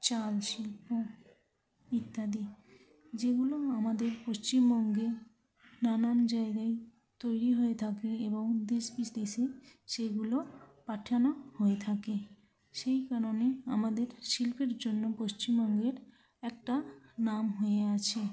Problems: constant background noise, continuous background conversations, low volume